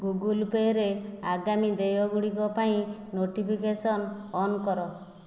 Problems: none marked